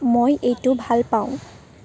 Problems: background conversations at intervals